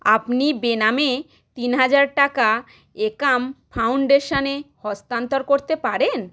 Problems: none marked